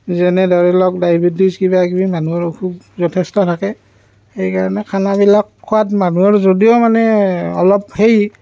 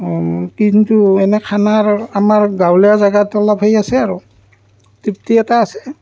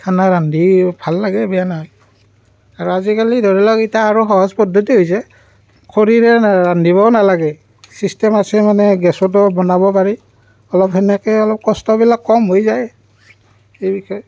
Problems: background sounds at intervals